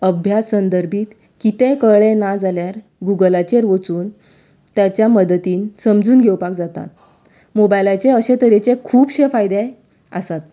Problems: background sounds at intervals